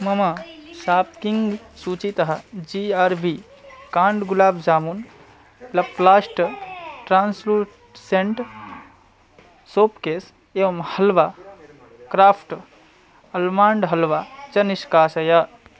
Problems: continuous background conversations